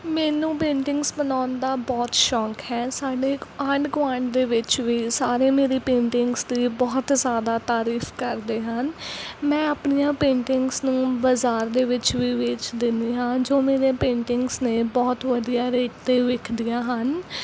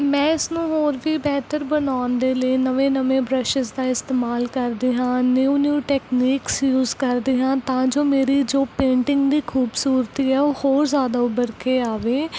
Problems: none marked